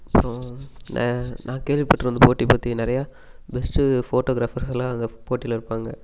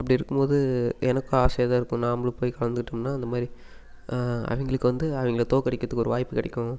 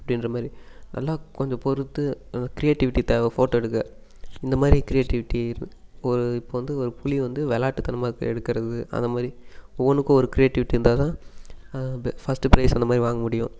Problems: constant background noise